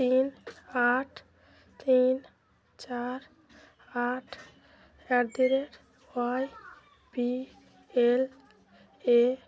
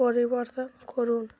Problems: constant background noise